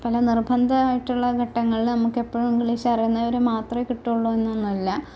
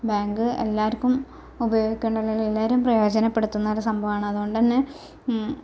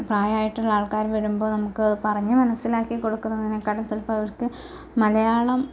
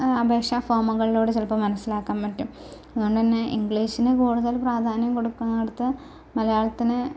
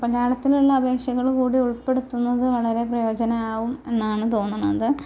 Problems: none marked